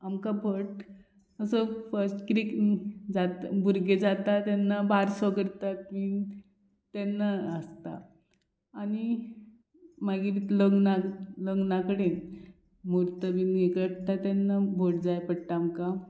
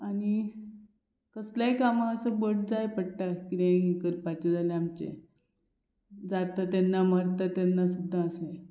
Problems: none marked